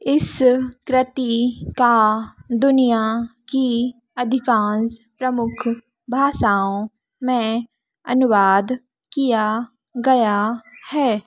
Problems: none marked